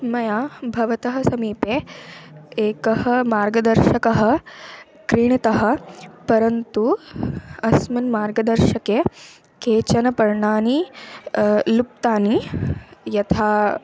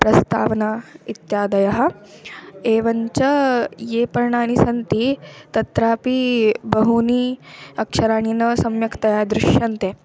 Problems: constant background noise